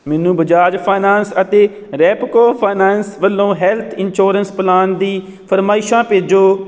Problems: none marked